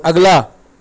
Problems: constant background noise